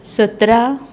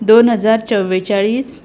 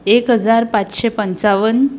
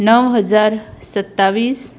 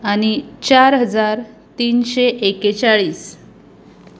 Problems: none marked